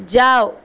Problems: constant background noise